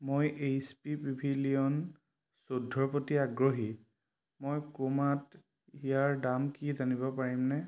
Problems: none marked